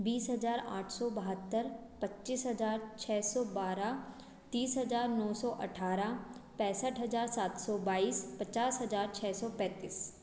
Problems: background sounds at intervals